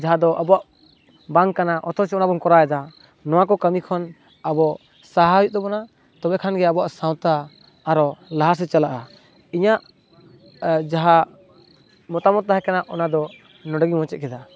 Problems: constant background noise, continuous background conversations